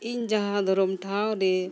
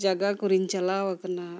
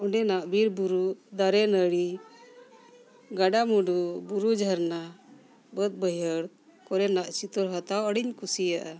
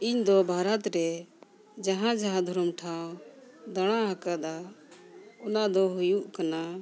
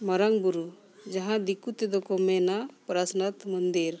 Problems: constant background noise, background conversations at intervals